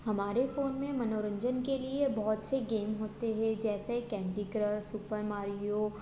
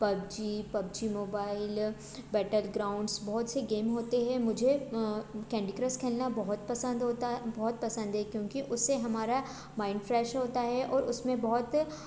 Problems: constant background noise